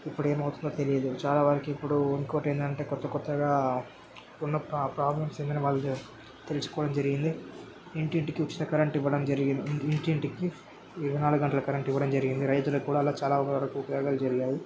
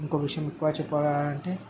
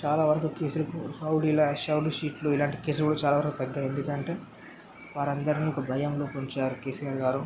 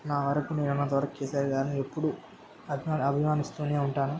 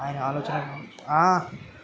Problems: constant background noise, background conversations at intervals